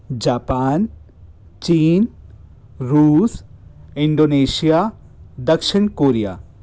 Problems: constant background noise